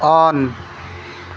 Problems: constant background noise